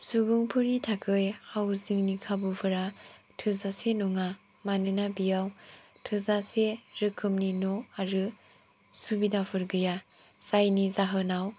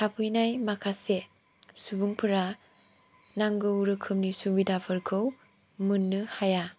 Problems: none marked